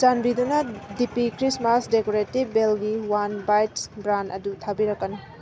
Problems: background sounds at intervals